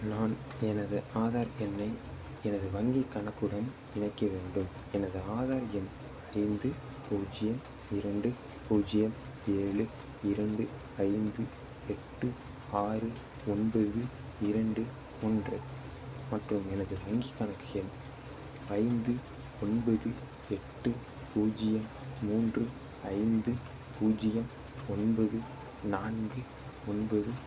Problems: constant background noise, low volume